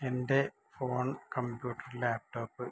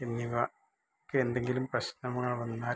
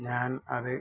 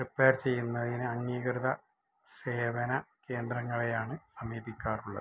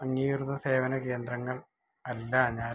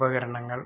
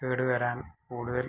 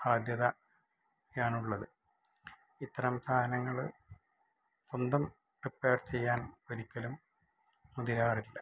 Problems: low volume